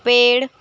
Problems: constant background noise